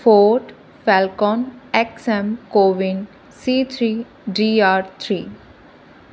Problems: constant background noise